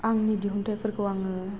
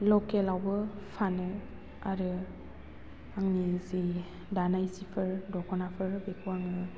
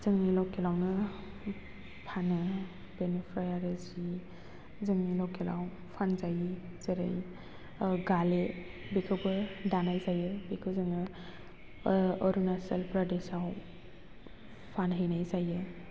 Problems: constant background noise